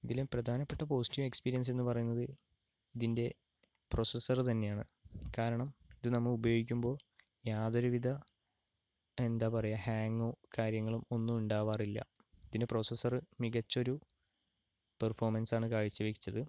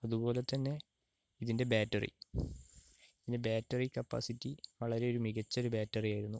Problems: low volume